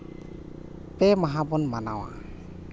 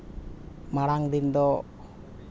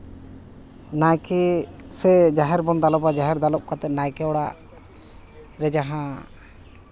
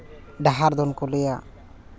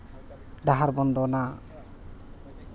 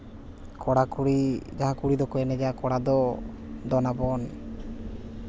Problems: none marked